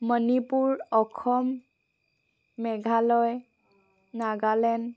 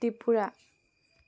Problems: none marked